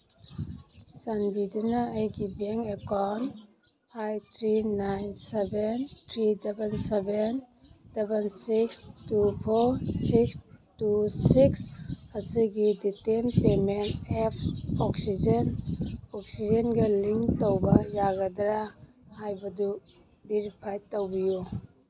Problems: background sounds at intervals